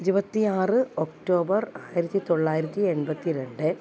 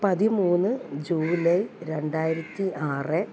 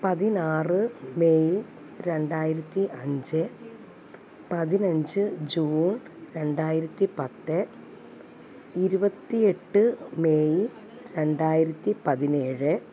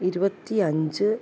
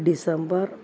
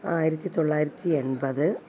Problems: constant background noise